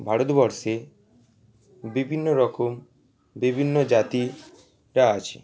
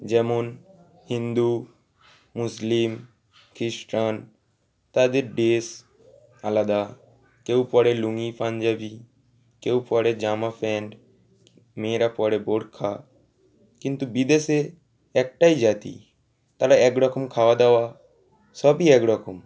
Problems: none marked